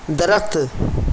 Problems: constant background noise